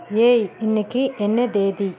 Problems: constant background noise